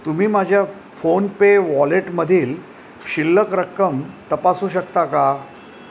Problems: none marked